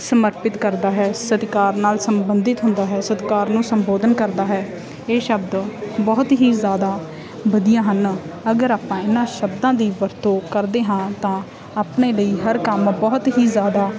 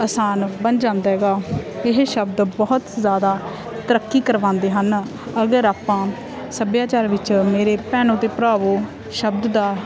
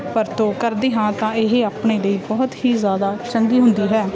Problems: constant background noise, background conversations at intervals